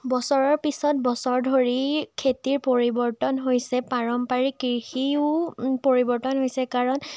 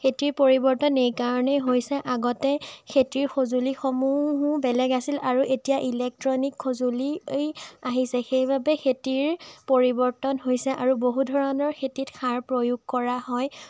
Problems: none marked